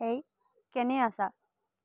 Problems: low volume